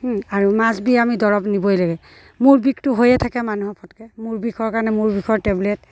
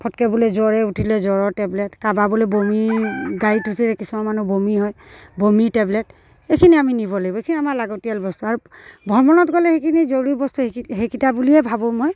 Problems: none marked